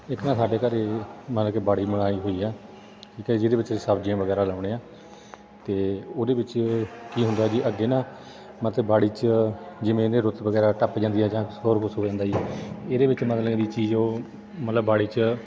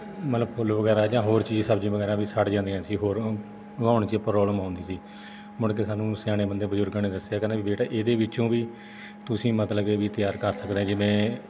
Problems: background sounds at intervals, background conversations at intervals